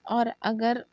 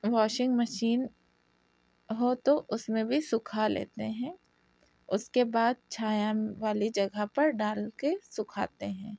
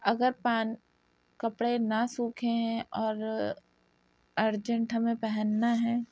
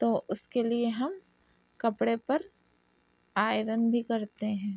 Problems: background sounds at intervals, low volume